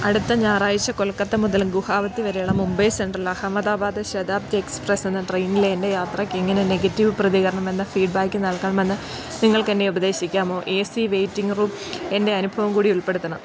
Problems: background sounds at intervals